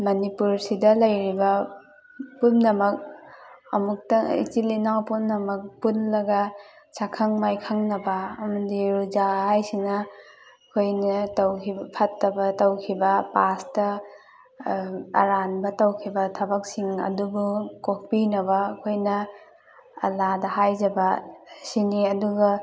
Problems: background sounds at intervals, background conversations at intervals